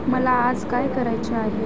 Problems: constant background noise